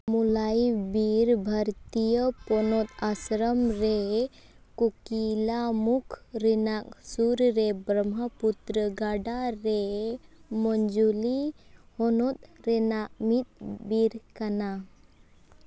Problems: none marked